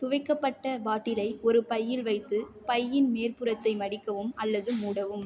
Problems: none marked